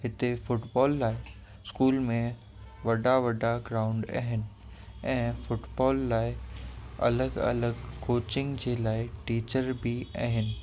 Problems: constant background noise, echo